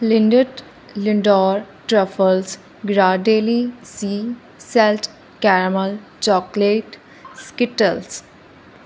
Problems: constant background noise